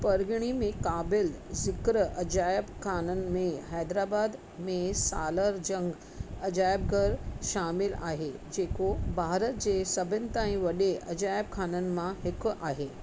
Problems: constant background noise, low volume